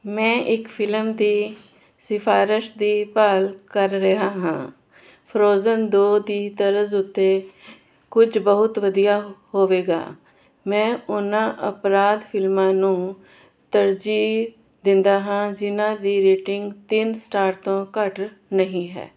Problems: constant background noise